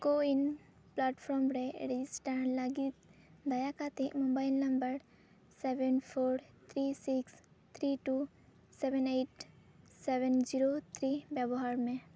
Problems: none marked